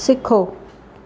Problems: none marked